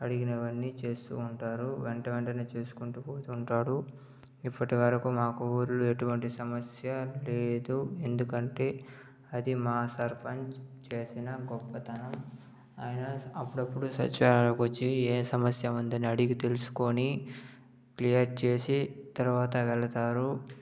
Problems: low volume